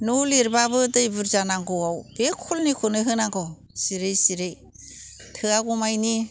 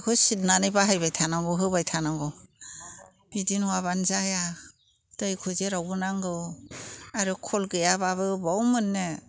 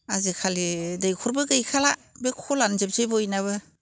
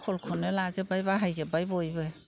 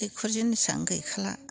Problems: constant background noise